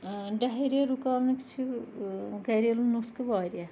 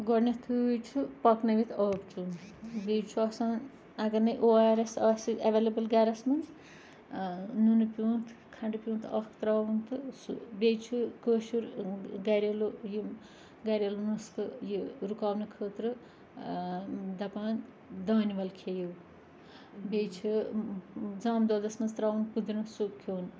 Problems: constant background noise, background conversations at intervals